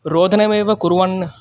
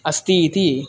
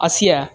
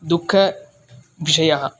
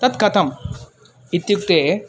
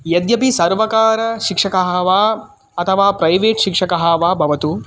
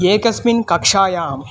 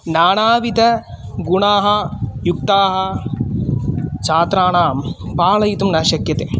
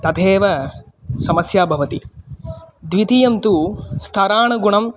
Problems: constant background noise, continuous background conversations